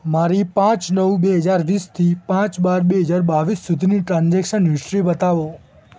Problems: background sounds at intervals